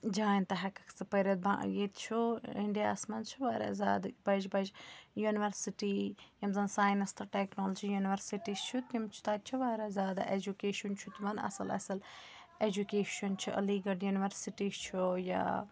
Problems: background conversations at intervals